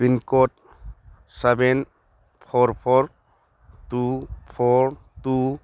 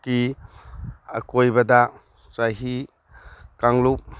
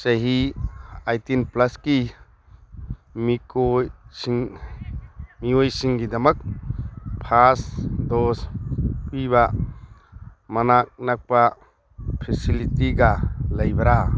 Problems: background sounds at intervals